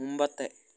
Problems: none marked